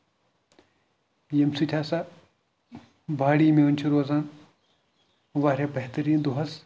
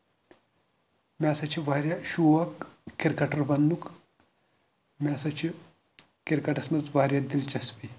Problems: background sounds at intervals